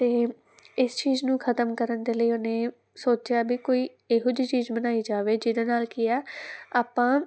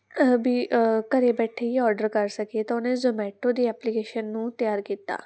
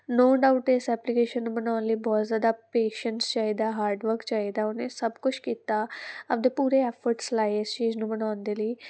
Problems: background sounds at intervals